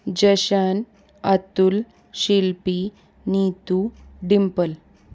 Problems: constant background noise